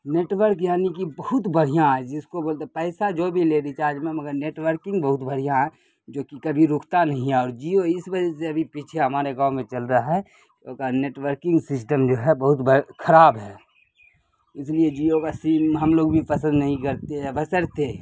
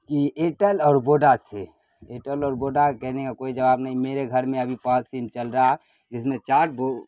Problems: constant background noise